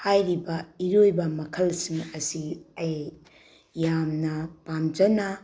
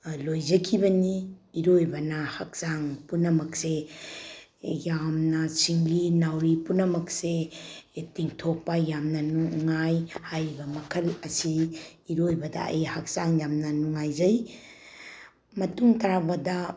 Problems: low volume